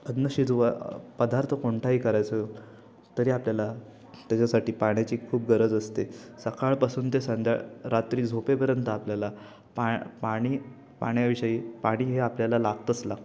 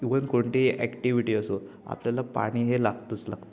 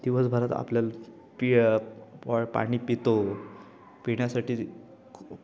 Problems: constant background noise, continuous background conversations